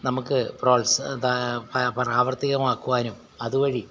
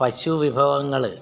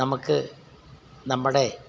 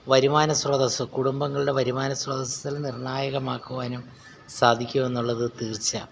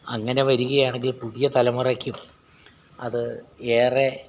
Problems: background sounds at intervals